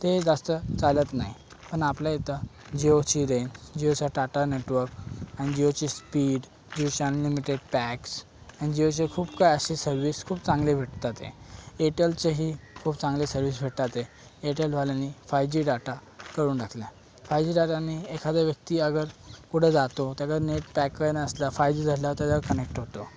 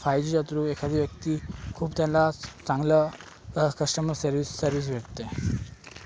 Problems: background sounds at intervals